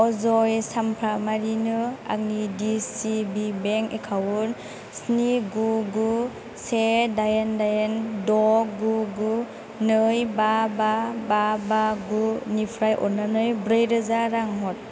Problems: constant background noise